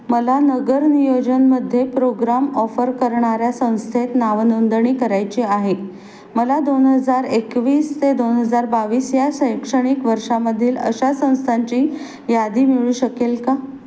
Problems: constant background noise, background conversations at intervals